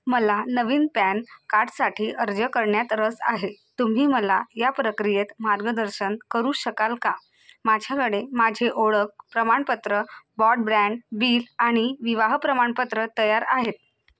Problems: background sounds at intervals